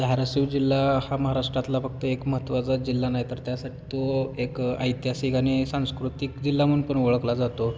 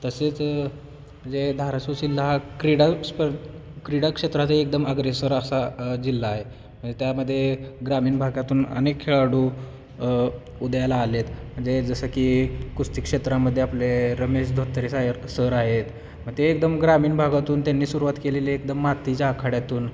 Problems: constant background noise, continuous background conversations